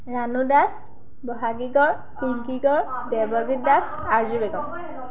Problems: continuous background conversations